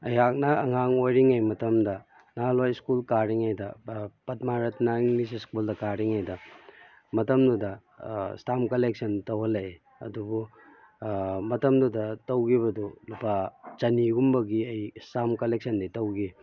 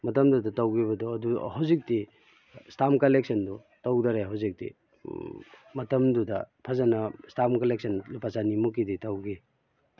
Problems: background sounds at intervals